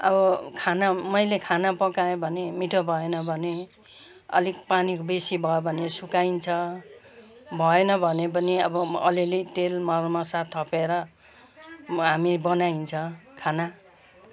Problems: background sounds at intervals, background conversations at intervals